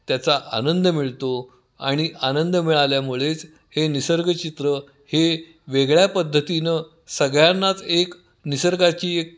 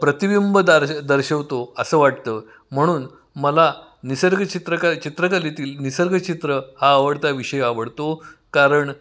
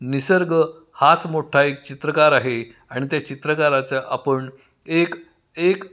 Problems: background sounds at intervals, echo